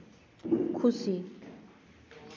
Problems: none marked